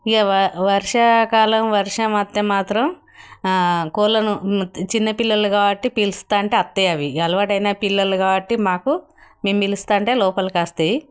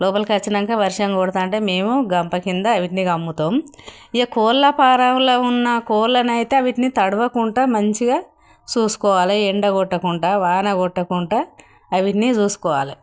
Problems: none marked